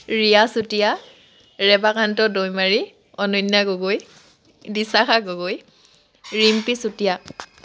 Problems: constant background noise